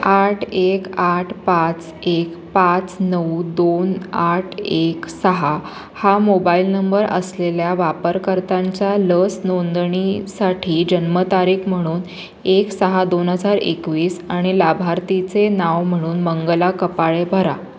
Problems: constant background noise, background conversations at intervals